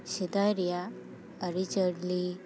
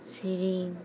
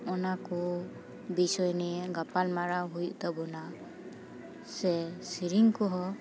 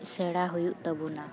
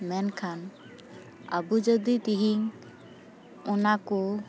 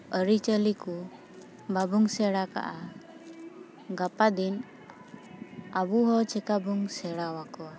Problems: constant background noise, background conversations at intervals